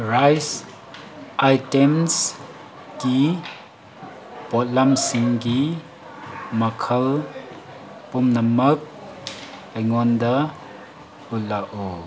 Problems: constant background noise